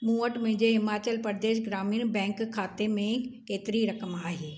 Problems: none marked